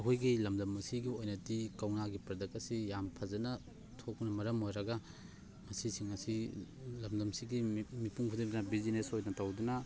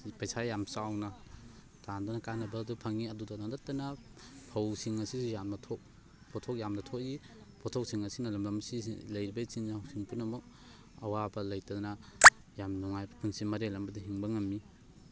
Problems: constant background noise